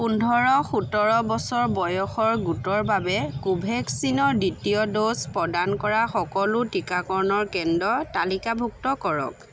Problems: constant background noise